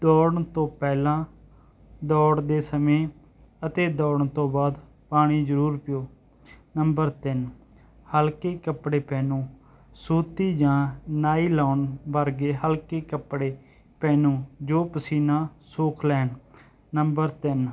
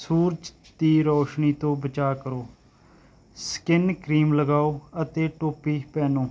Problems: none marked